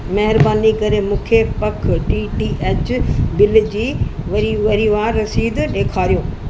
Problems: constant background noise, echo